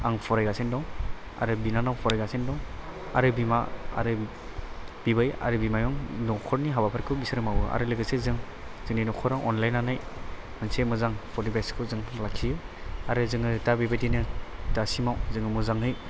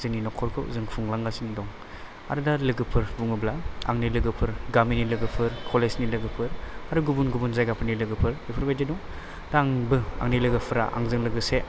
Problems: background sounds at intervals